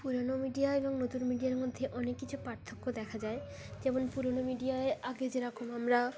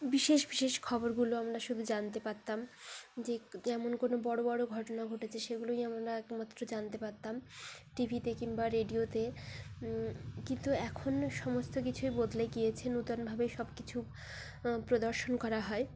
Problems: constant background noise, continuous background conversations